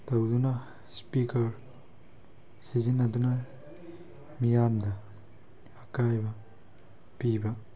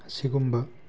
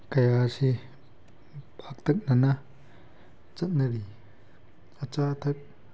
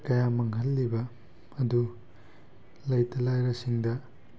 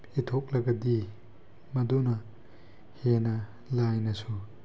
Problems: background sounds at intervals